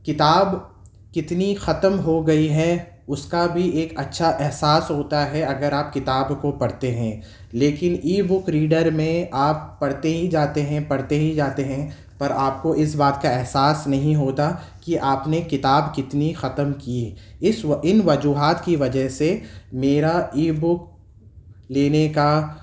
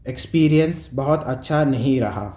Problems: none marked